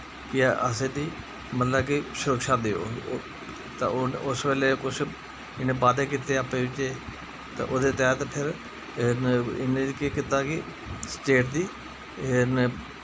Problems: constant background noise